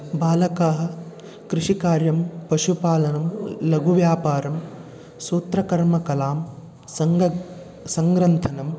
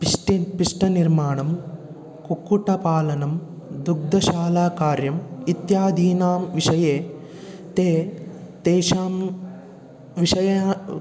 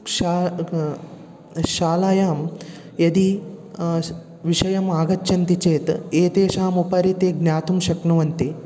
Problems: continuous background conversations